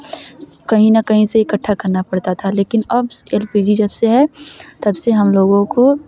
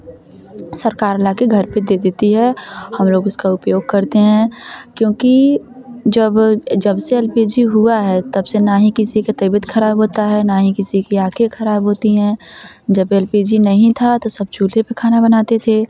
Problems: constant background noise